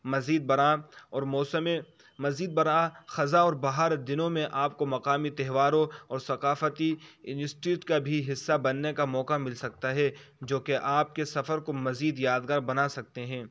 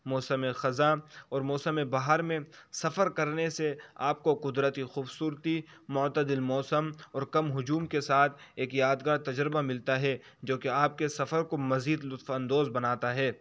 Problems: constant background noise